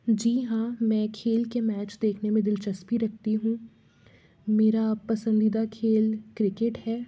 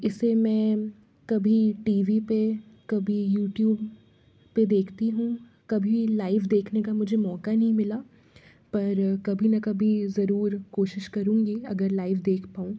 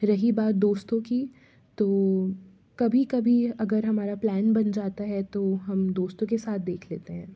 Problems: background sounds at intervals